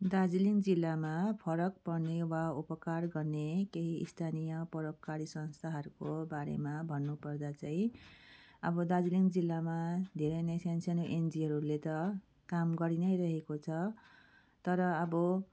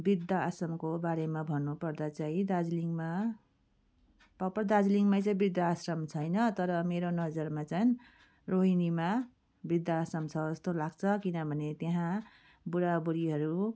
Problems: none marked